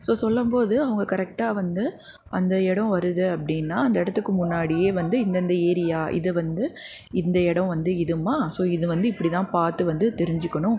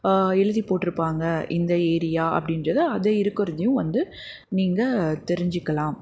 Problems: background conversations at intervals